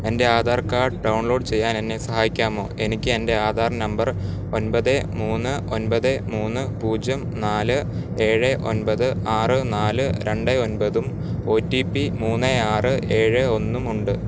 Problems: constant background noise